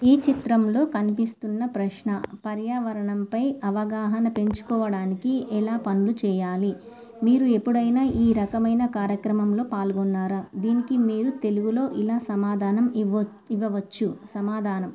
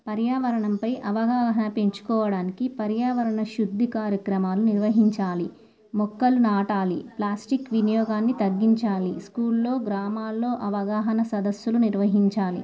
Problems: none marked